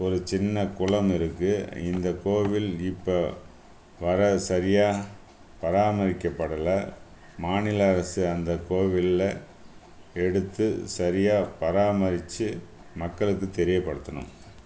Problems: background sounds at intervals